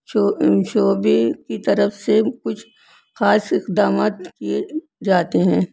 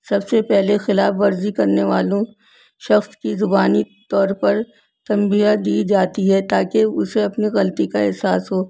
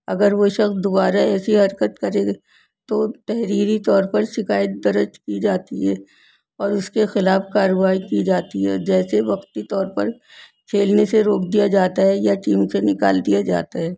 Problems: none marked